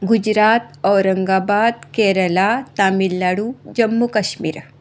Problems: background sounds at intervals